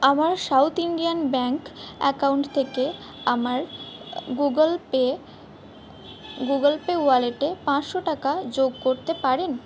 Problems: background sounds at intervals